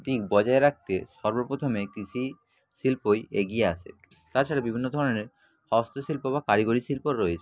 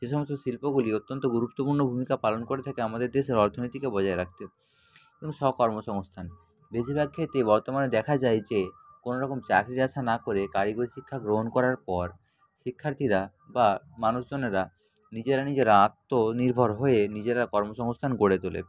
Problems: constant background noise, background conversations at intervals